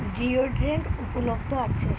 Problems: constant background noise